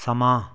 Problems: background conversations at intervals